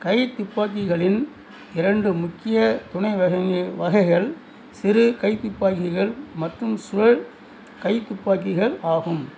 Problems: background sounds at intervals